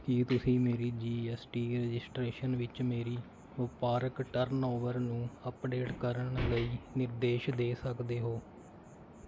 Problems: none marked